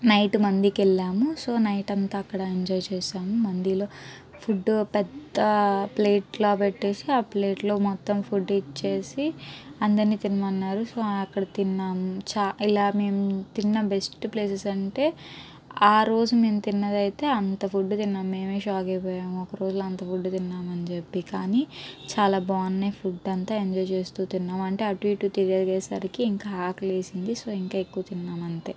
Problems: background sounds at intervals